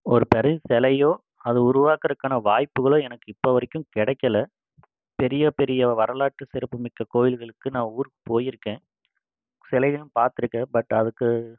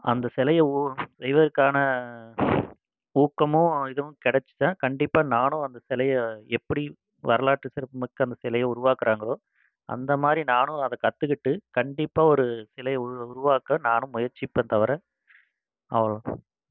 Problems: constant background noise